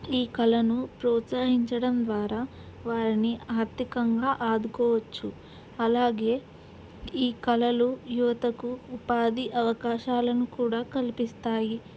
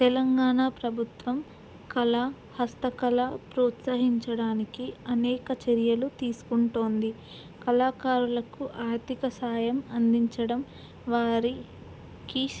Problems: background sounds at intervals